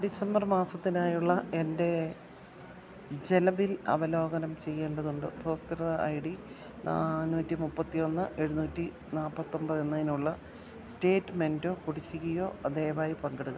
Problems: low volume